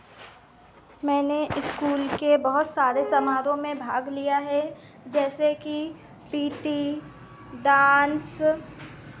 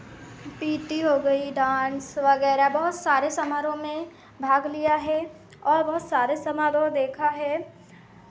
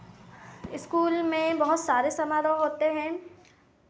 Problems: constant background noise, continuous background conversations